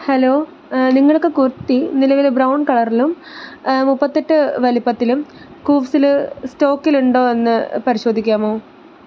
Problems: constant background noise